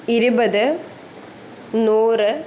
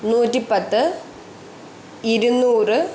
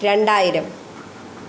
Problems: none marked